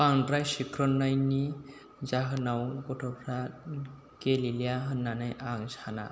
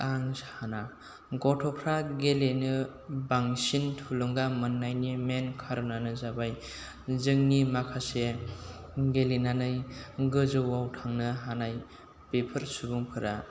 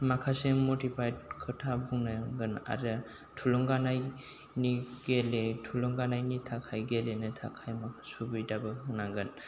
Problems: low volume